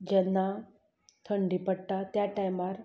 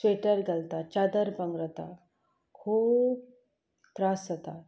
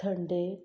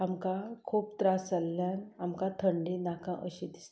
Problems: background sounds at intervals